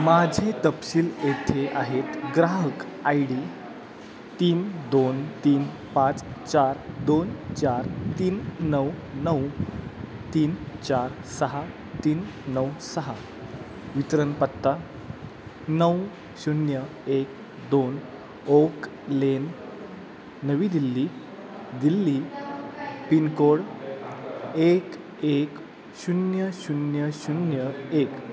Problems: constant background noise, echo